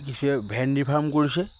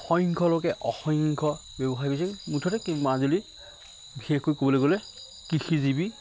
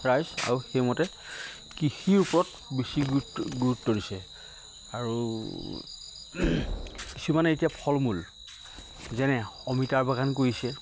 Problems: constant background noise